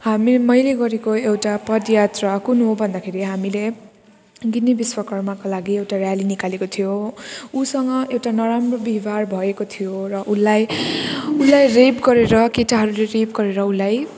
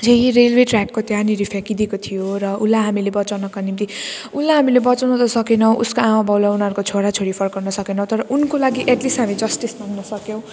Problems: none marked